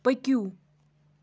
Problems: none marked